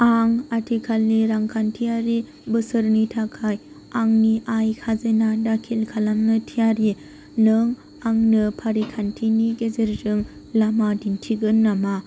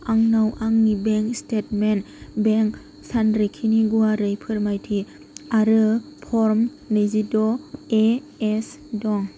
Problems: constant background noise